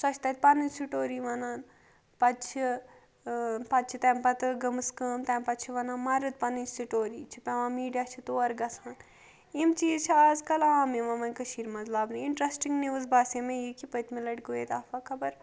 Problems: none marked